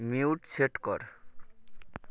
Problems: constant background noise